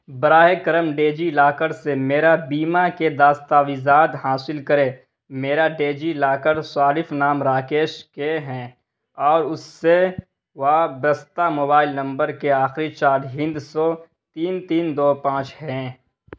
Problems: none marked